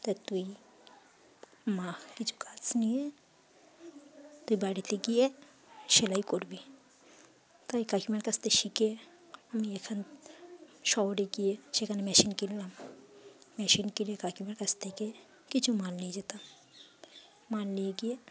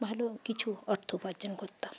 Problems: constant background noise, continuous background conversations, low volume